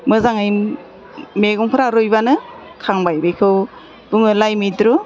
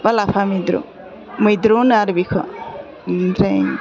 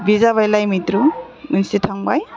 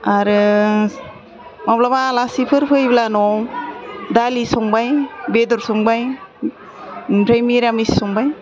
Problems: constant background noise